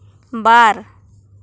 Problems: none marked